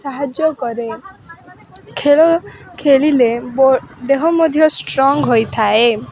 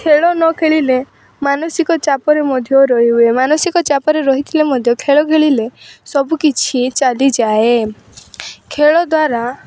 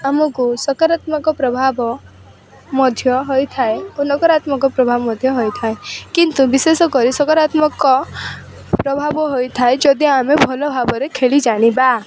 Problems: constant background noise